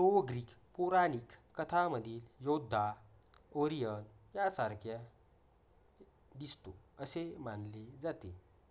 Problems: none marked